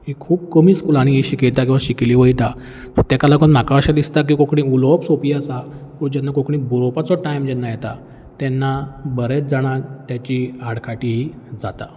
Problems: background sounds at intervals